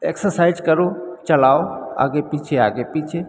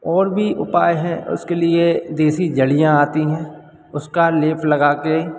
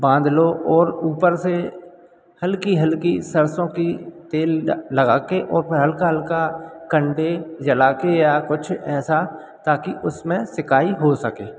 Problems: none marked